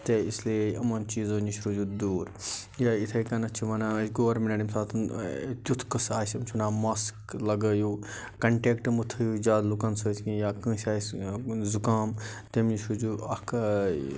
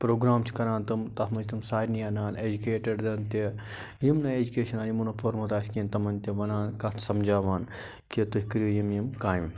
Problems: none marked